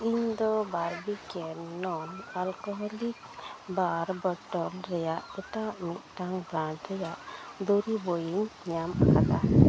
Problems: constant background noise